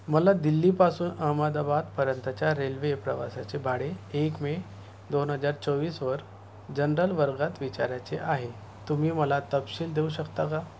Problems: none marked